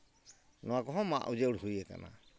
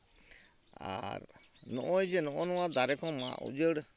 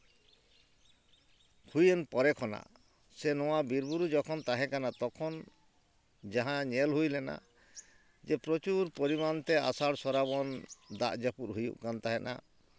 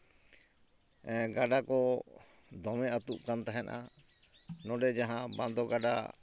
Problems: none marked